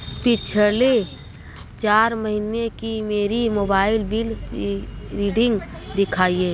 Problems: constant background noise